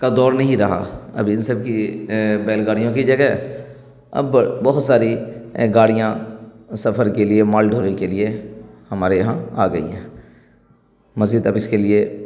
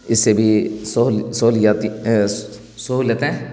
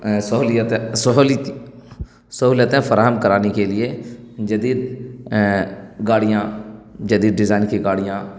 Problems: none marked